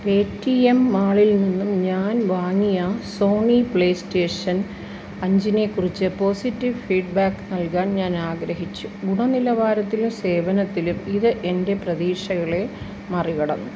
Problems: none marked